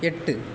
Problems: constant background noise